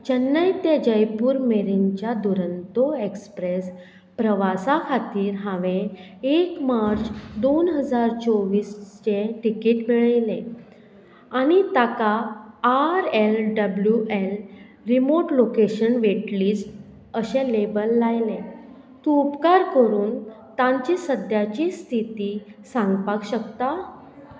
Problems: constant background noise, background conversations at intervals